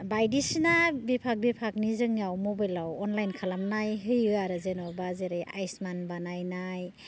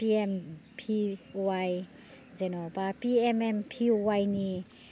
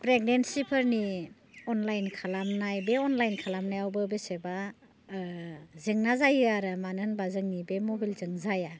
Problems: low volume